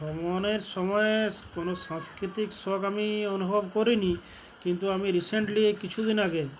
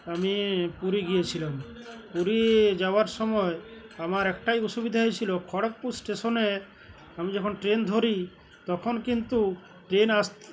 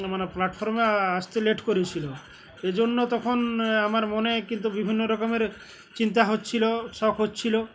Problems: constant background noise, background conversations at intervals